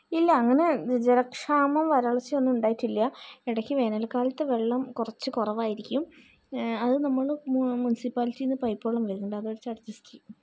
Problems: none marked